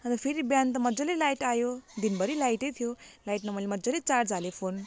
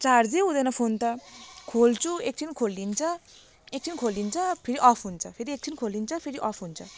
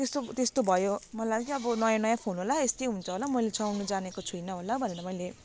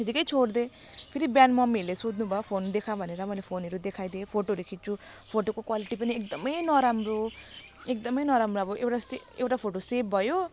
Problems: constant background noise